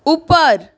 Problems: none marked